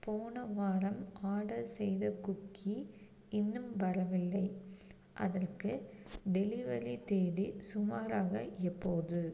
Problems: constant background noise